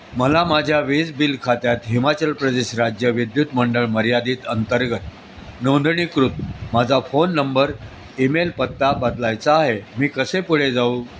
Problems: constant background noise, background conversations at intervals